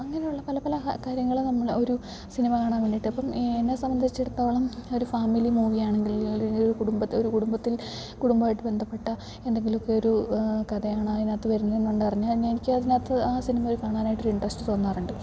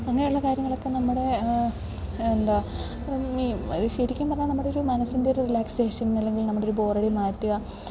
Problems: constant background noise, low volume